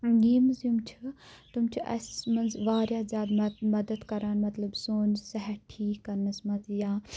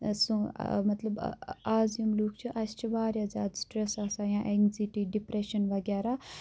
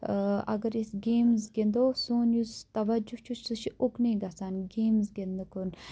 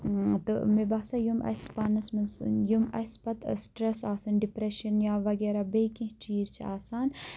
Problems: none marked